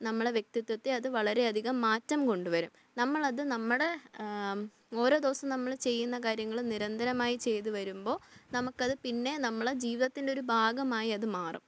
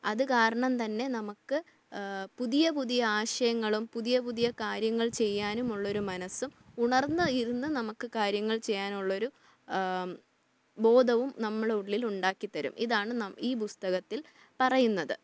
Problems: low volume